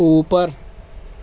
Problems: constant background noise